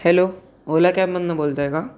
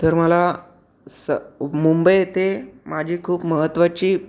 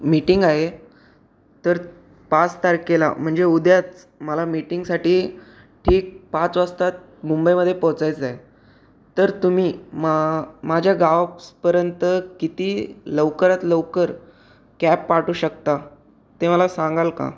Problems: background sounds at intervals